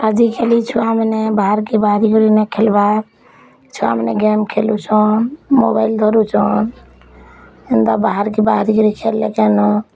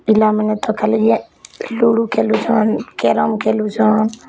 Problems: background sounds at intervals